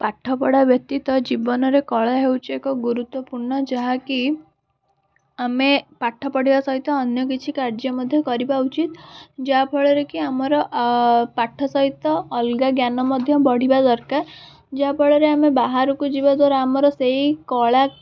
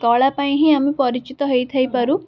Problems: constant background noise, background conversations at intervals